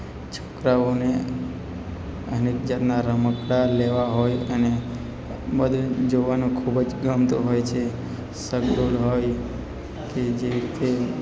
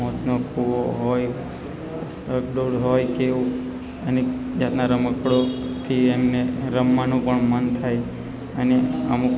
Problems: constant background noise